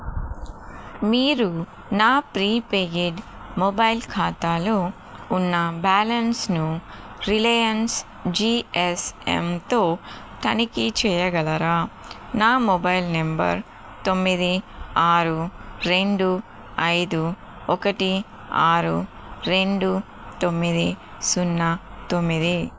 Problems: constant background noise